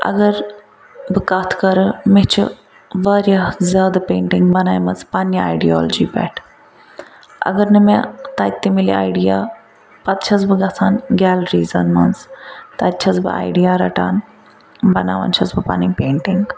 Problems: constant background noise